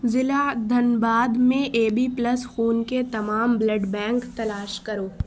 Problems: constant background noise